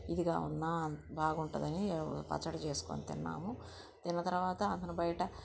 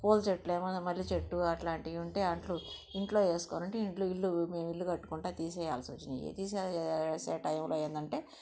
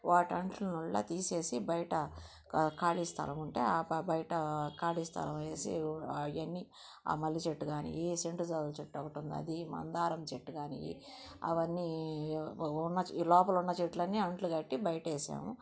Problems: background sounds at intervals, low volume